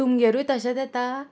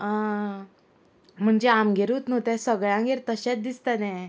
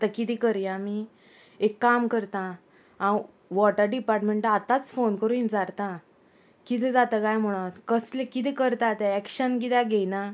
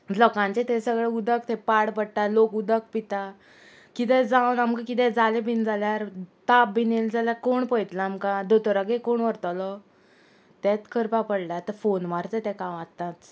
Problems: constant background noise